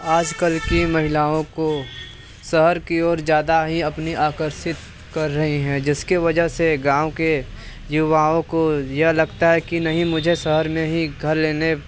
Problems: none marked